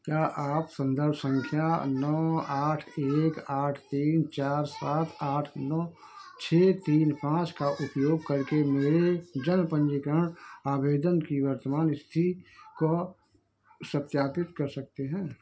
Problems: background sounds at intervals, background conversations at intervals